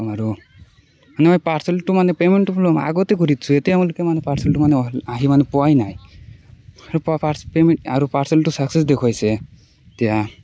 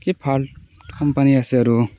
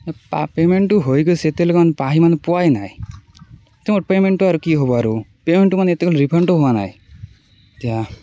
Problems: background conversations at intervals